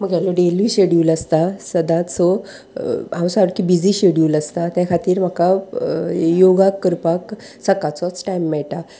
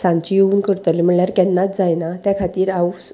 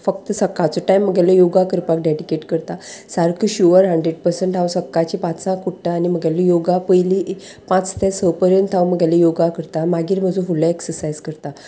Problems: constant background noise